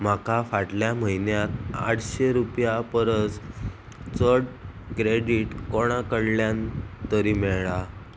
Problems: constant background noise